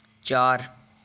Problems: none marked